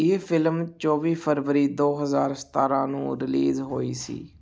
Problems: none marked